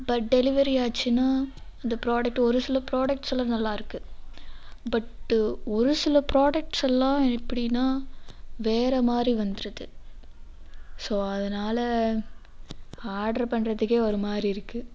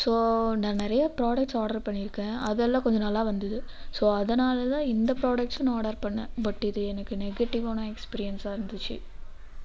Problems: none marked